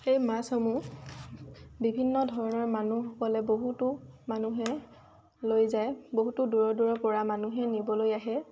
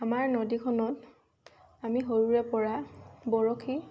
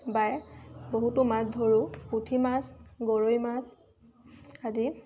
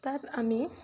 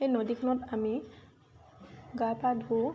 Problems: constant background noise, background conversations at intervals